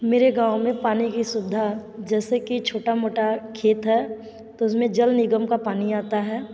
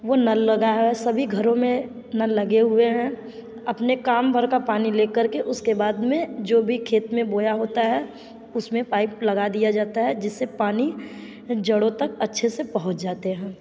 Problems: echo